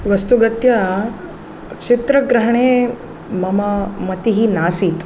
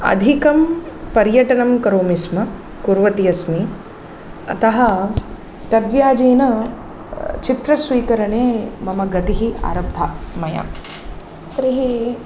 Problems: none marked